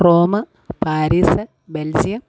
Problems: none marked